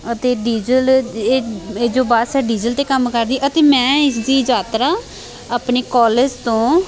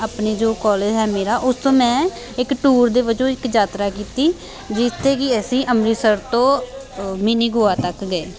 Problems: background sounds at intervals